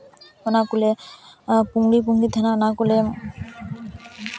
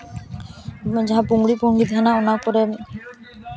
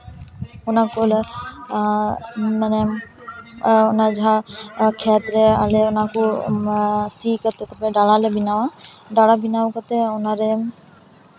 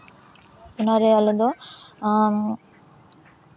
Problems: constant background noise, continuous background conversations